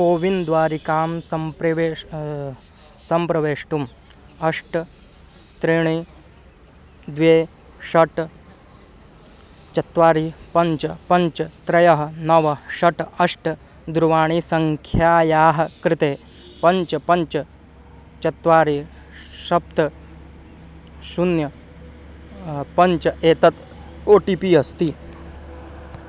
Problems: constant background noise